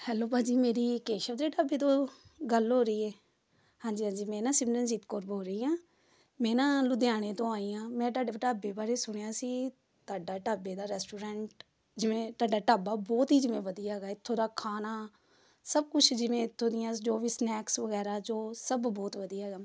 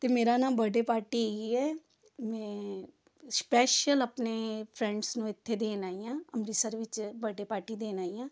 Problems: background sounds at intervals, background conversations at intervals